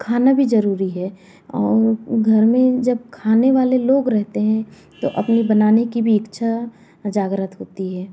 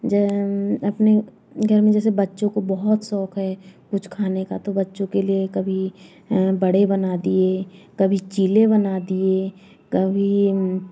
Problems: background sounds at intervals, background conversations at intervals